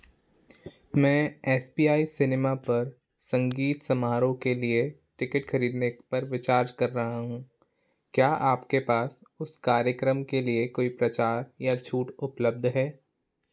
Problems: none marked